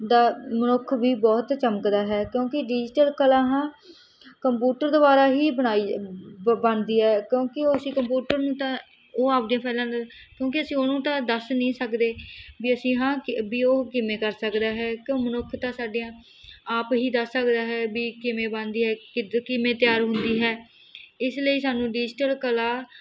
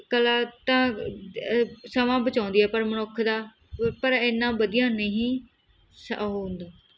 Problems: none marked